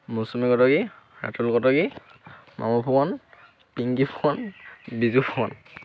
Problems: none marked